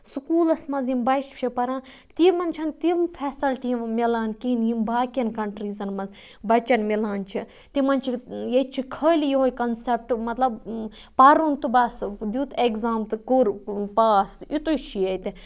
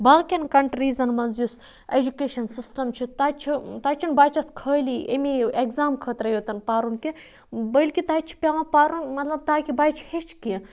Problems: background sounds at intervals, low volume